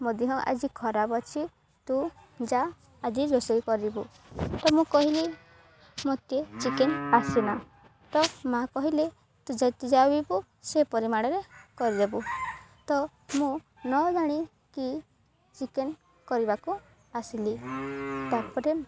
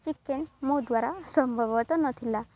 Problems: background sounds at intervals